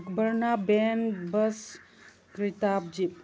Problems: background sounds at intervals